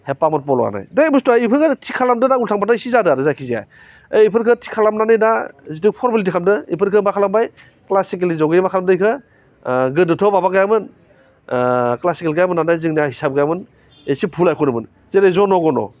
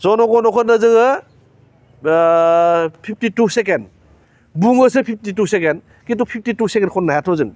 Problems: constant background noise